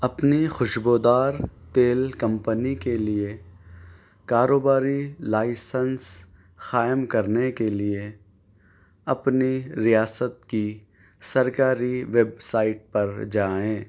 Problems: none marked